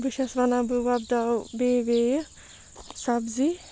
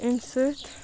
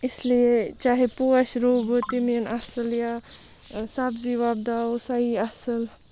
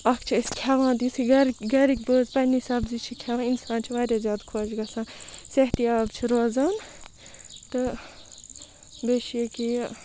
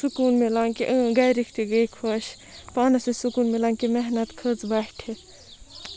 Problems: constant background noise, background conversations at intervals